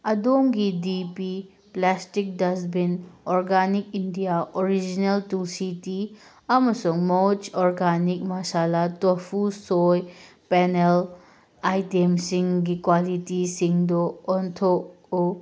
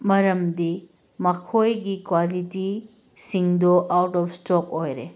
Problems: background sounds at intervals